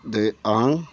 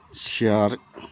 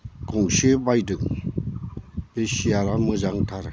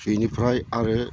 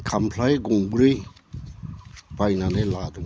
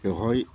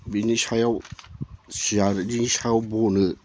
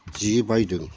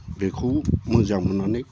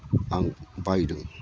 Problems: none marked